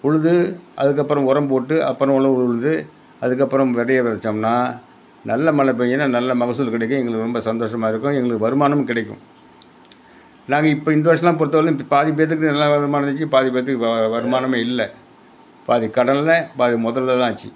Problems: none marked